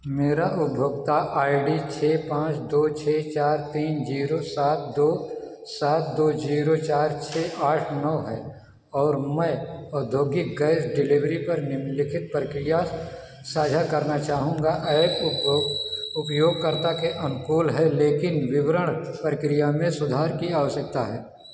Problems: none marked